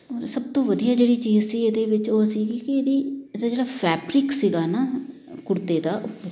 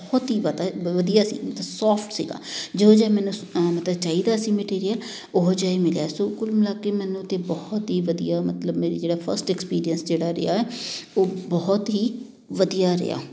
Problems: none marked